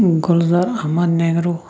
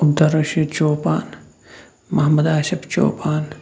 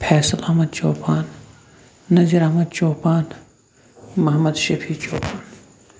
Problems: background sounds at intervals